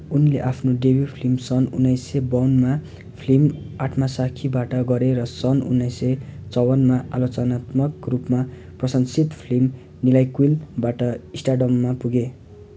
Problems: none marked